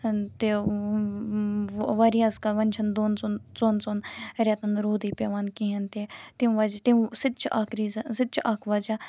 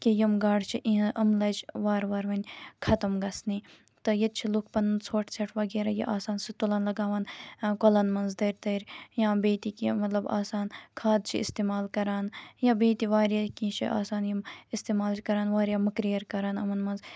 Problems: constant background noise